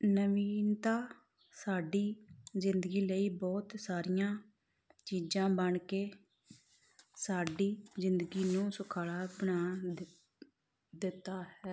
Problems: background sounds at intervals